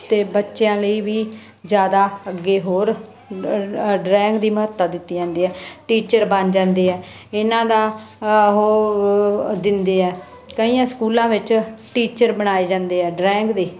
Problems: constant background noise